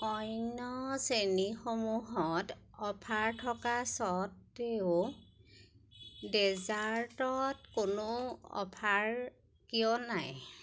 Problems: none marked